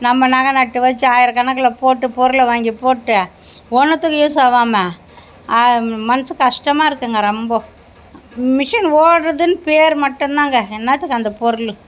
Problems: background sounds at intervals